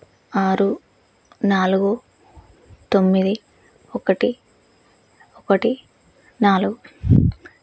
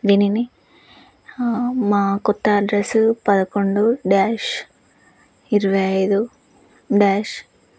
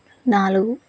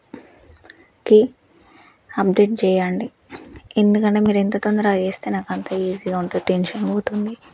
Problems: none marked